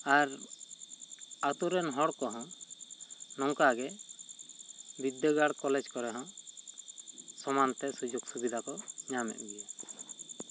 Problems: constant background noise